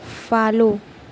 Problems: constant background noise